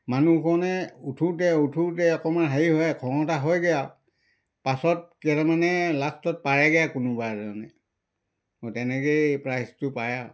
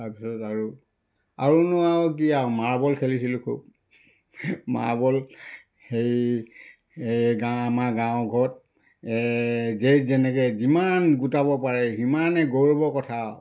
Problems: background sounds at intervals